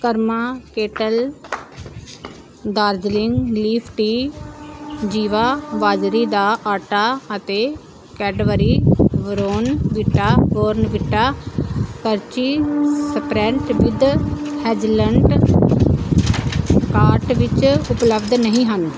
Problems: none marked